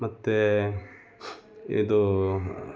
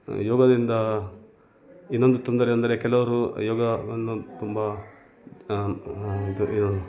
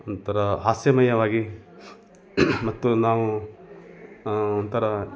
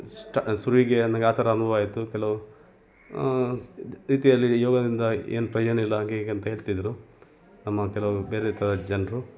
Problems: background sounds at intervals